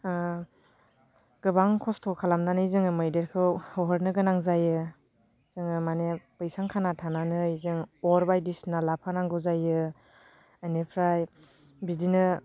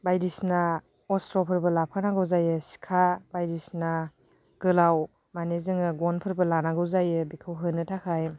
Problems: none marked